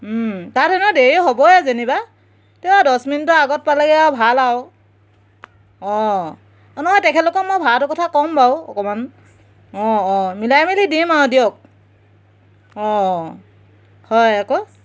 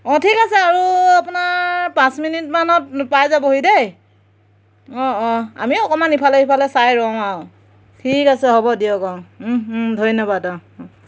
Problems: none marked